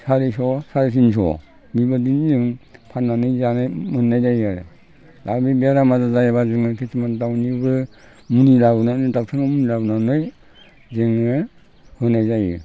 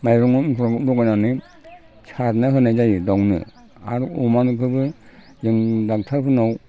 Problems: constant background noise